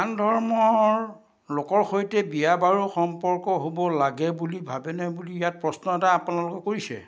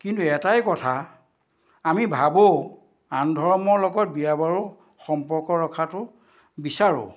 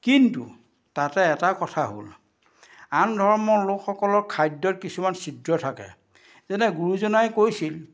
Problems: none marked